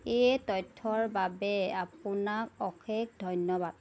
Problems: none marked